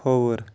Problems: none marked